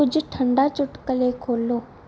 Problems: background sounds at intervals